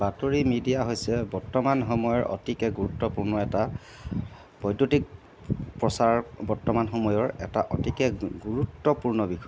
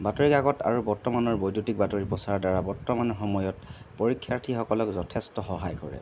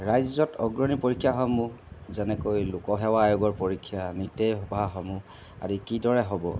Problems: background sounds at intervals